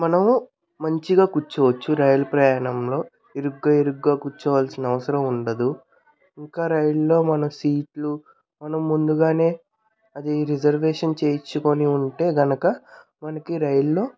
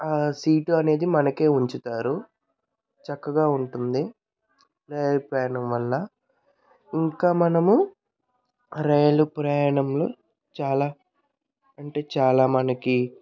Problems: background conversations at intervals